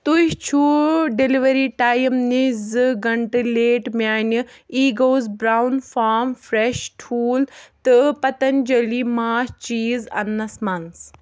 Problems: none marked